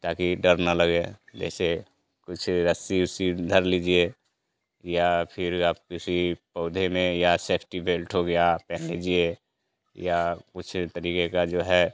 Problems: none marked